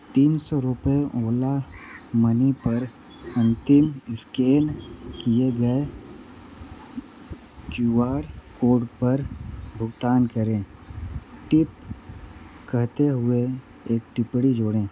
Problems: none marked